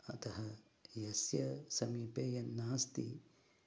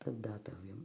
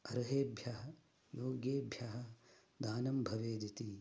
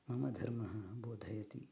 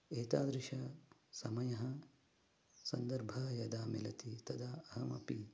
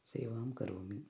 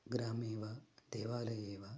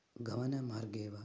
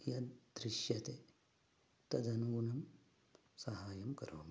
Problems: background sounds at intervals, low volume